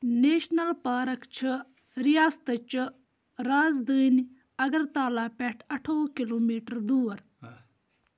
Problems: none marked